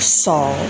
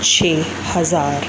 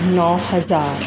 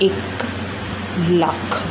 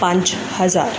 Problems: none marked